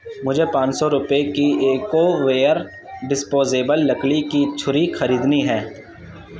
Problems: background sounds at intervals, background conversations at intervals